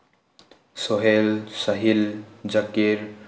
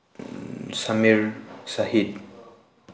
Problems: none marked